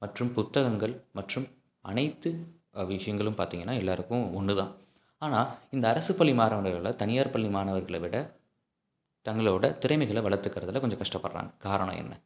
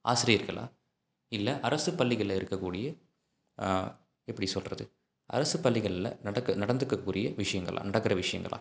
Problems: none marked